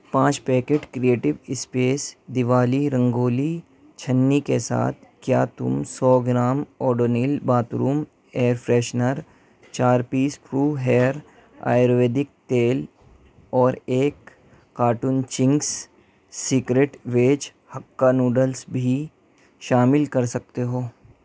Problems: none marked